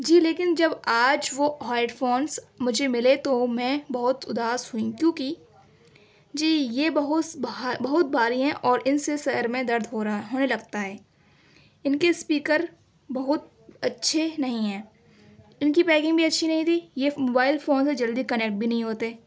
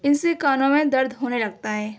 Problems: none marked